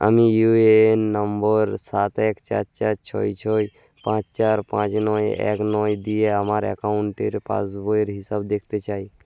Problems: constant background noise